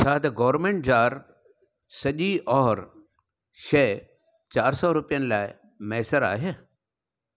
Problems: none marked